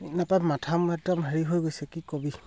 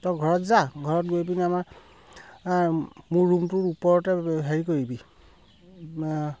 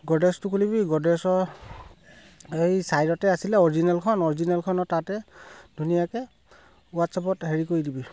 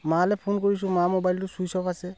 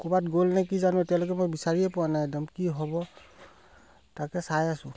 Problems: background sounds at intervals